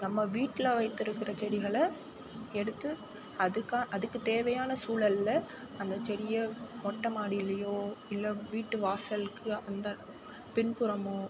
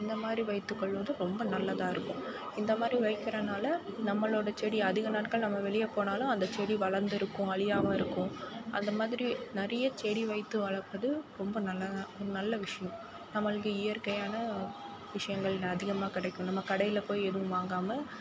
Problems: constant background noise